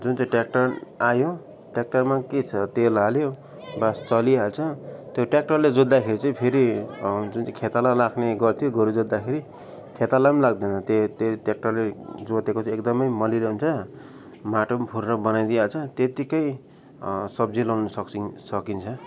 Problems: background sounds at intervals